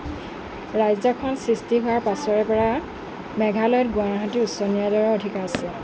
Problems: constant background noise, background conversations at intervals